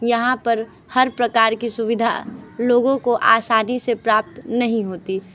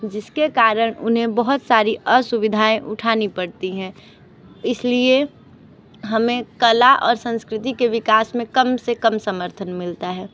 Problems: background sounds at intervals, background conversations at intervals